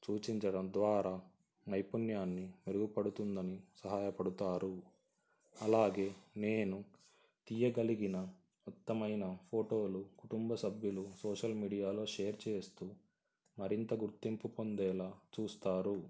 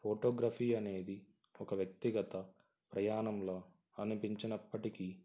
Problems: constant background noise